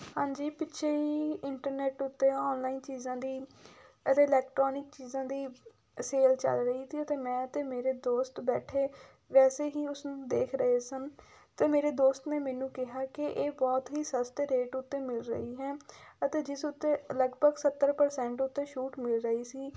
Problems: background sounds at intervals